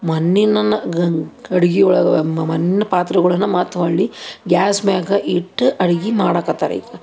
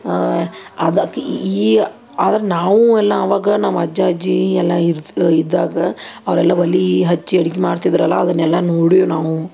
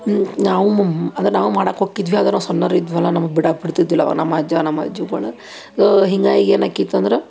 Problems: none marked